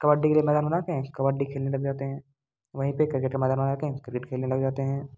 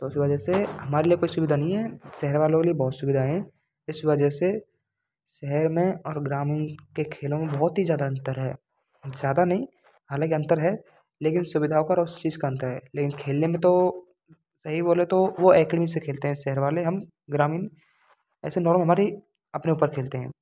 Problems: constant background noise